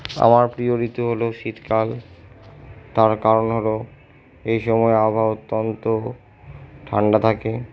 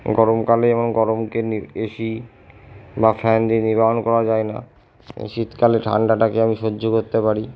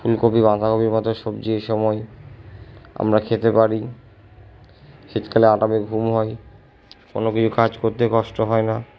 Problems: none marked